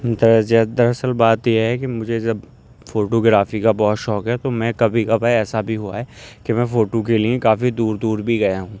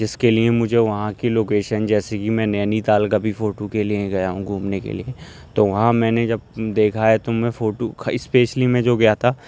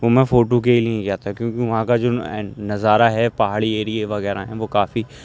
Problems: constant background noise